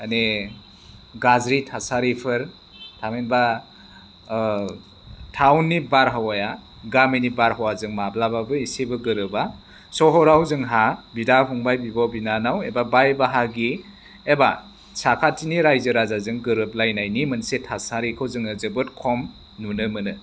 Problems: none marked